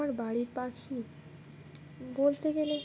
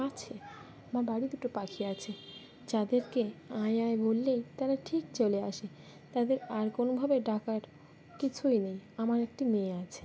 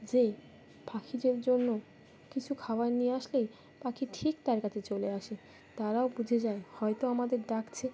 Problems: background sounds at intervals